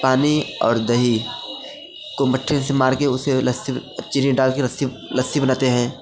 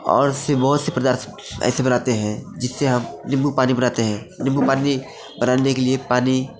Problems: constant background noise, continuous background conversations